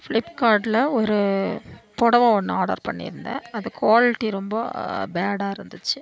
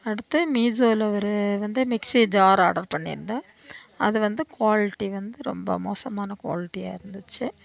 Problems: background sounds at intervals